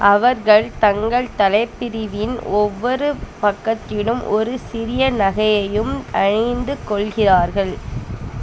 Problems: constant background noise